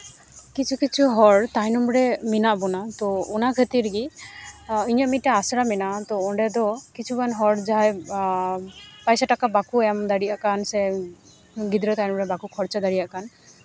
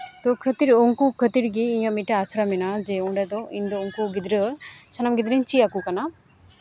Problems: none marked